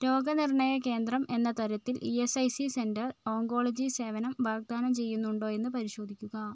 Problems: low volume